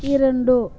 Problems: constant background noise